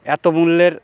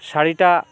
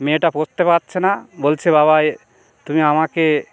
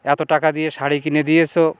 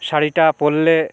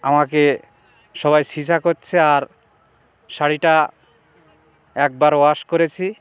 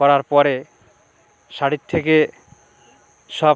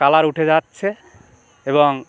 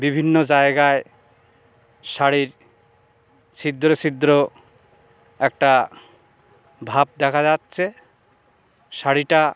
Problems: constant background noise, background conversations at intervals